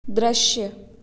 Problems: constant background noise, echo